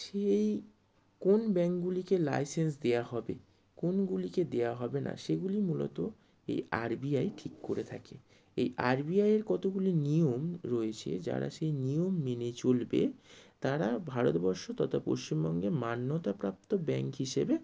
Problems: none marked